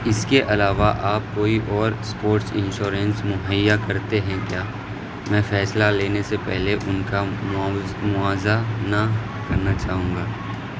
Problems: constant background noise